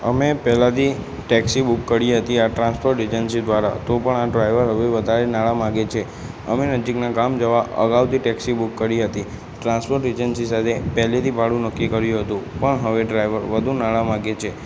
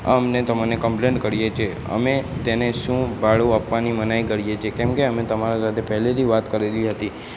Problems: constant background noise